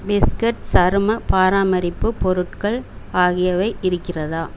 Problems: constant background noise